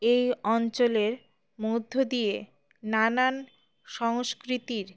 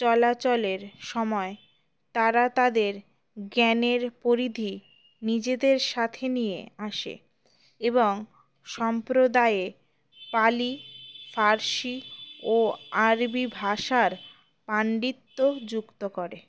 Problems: constant background noise